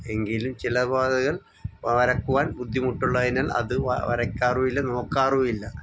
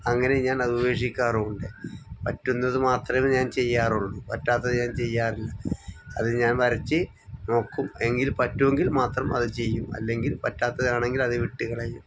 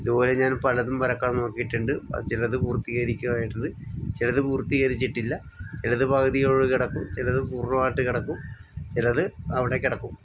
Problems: background sounds at intervals